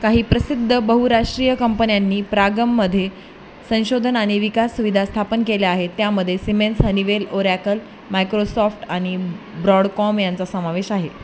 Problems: constant background noise, continuous background conversations